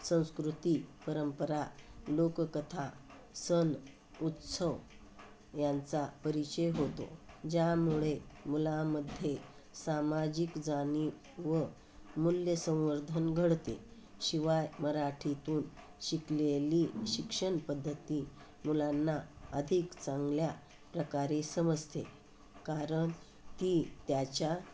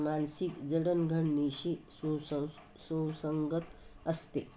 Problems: constant background noise